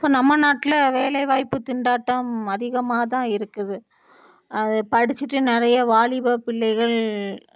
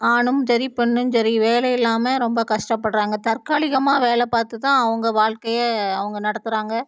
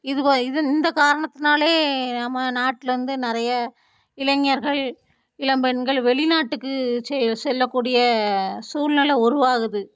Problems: none marked